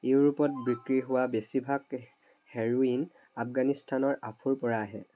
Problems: background sounds at intervals